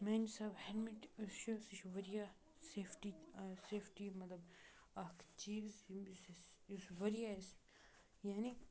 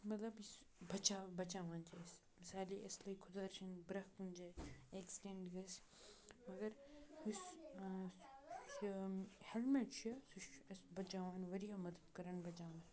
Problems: background sounds at intervals, continuous background conversations, low volume